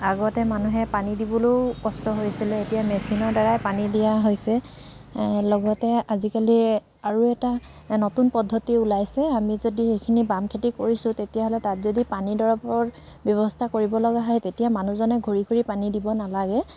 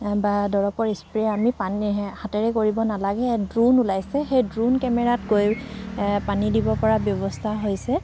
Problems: constant background noise